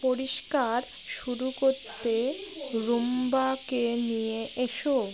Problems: constant background noise, background conversations at intervals